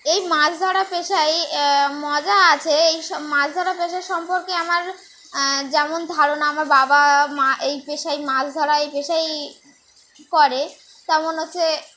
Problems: constant background noise